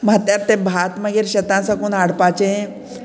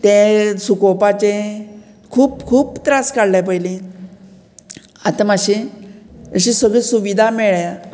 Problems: none marked